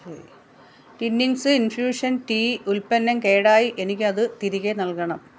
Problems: none marked